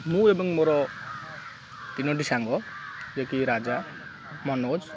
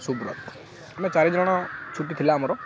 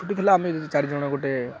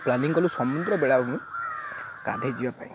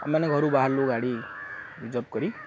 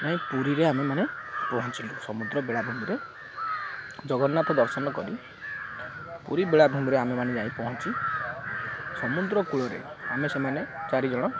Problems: none marked